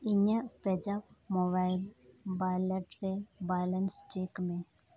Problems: none marked